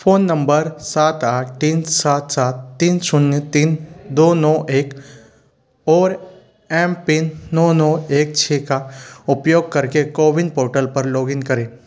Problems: constant background noise